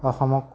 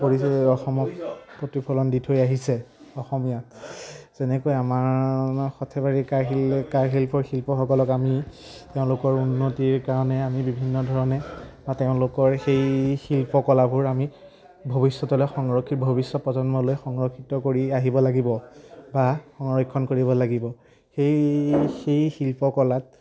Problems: none marked